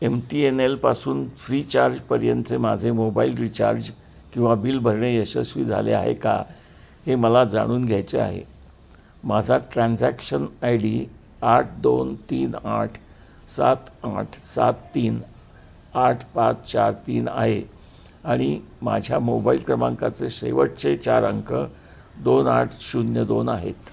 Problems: constant background noise, continuous background conversations